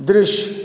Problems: constant background noise